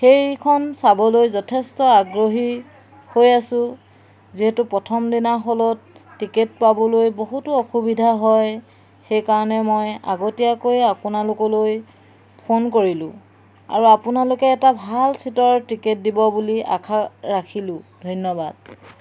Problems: background sounds at intervals